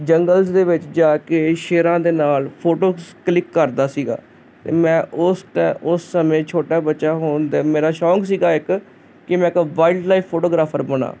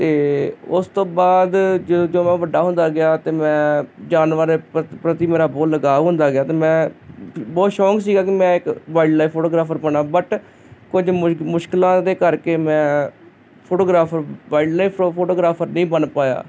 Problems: constant background noise